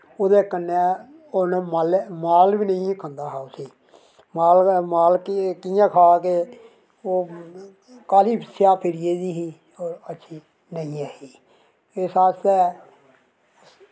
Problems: background sounds at intervals